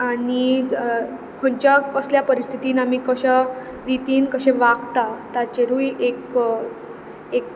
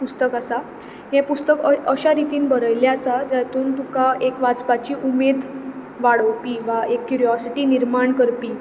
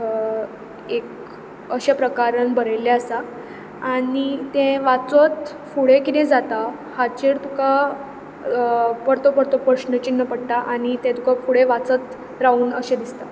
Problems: constant background noise